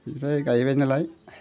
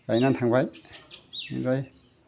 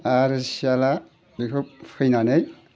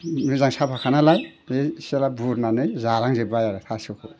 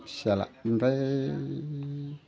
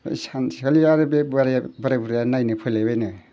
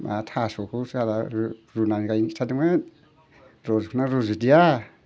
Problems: none marked